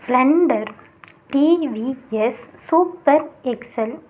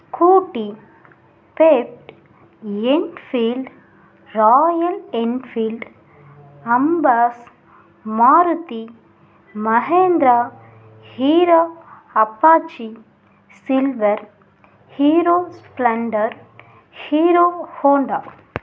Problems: none marked